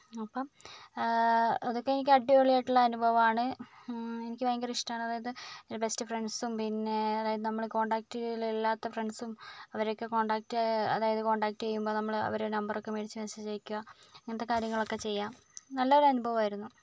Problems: none marked